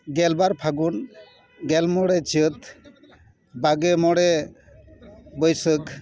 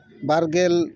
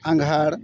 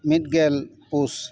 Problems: continuous background conversations